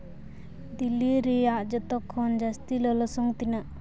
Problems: background sounds at intervals